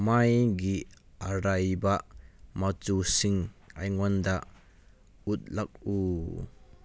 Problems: background sounds at intervals